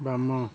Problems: constant background noise